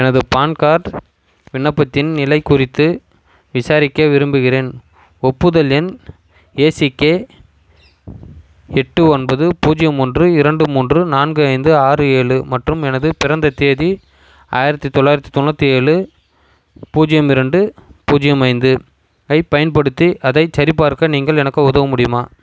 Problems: constant background noise